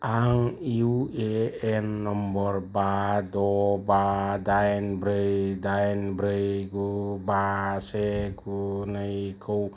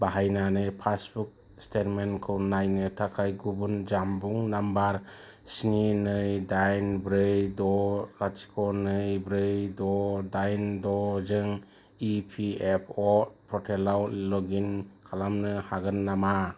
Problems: low volume